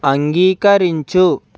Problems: constant background noise